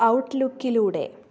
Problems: low volume